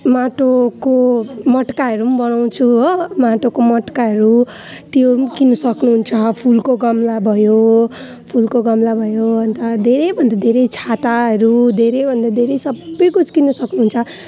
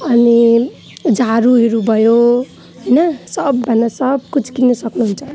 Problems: continuous background conversations